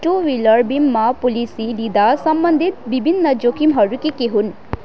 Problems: continuous background conversations